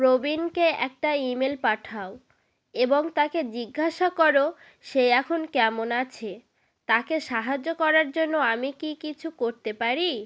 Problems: background sounds at intervals